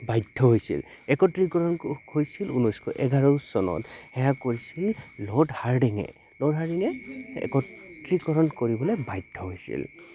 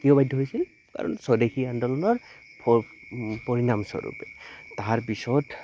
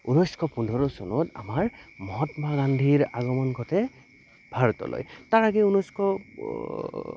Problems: constant background noise